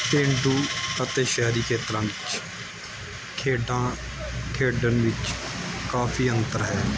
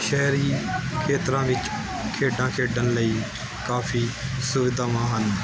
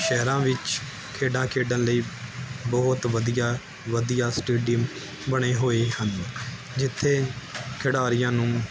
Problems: constant background noise